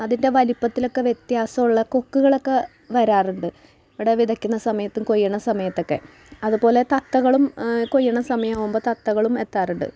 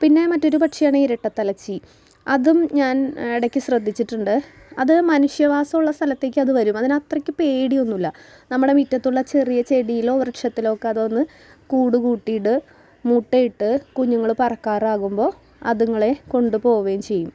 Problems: background sounds at intervals